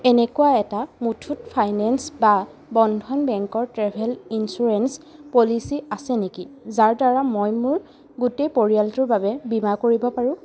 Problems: constant background noise